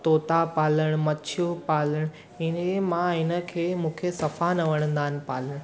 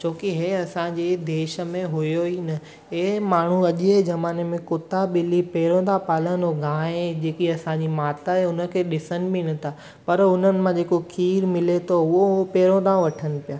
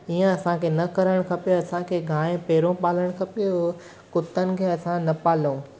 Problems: constant background noise